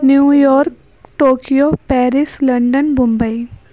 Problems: none marked